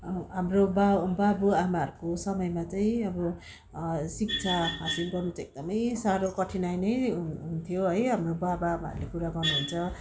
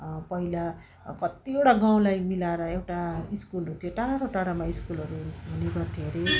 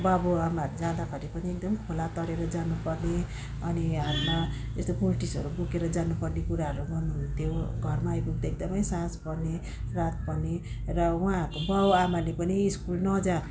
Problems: none marked